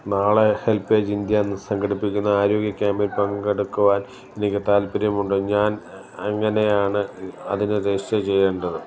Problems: none marked